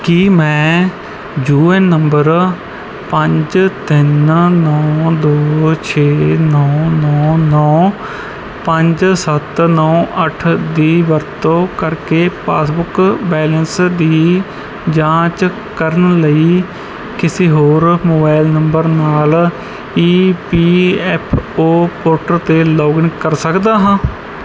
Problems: background sounds at intervals